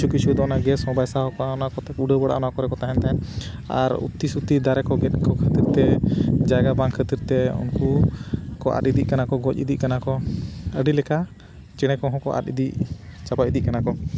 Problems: constant background noise